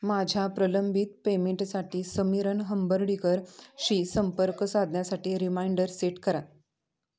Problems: constant background noise, background conversations at intervals